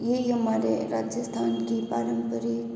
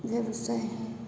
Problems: background sounds at intervals, background conversations at intervals